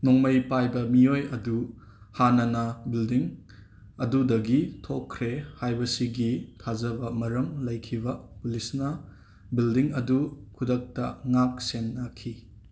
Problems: background sounds at intervals